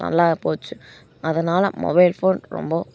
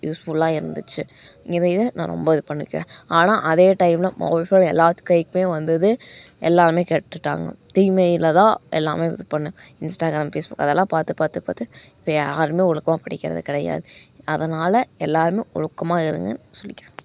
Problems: background sounds at intervals